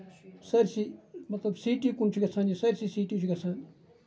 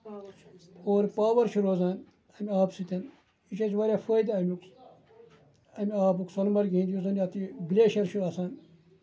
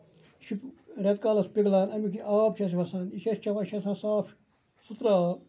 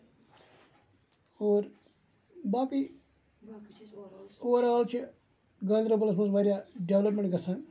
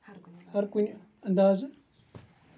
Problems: background sounds at intervals, low volume